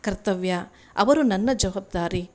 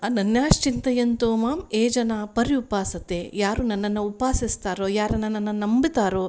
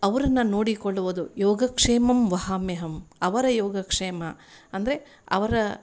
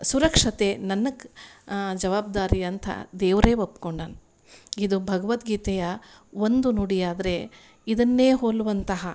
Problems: none marked